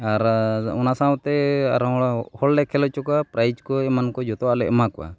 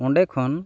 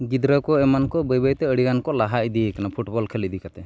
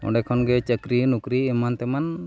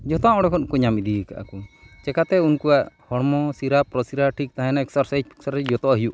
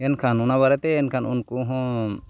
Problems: background sounds at intervals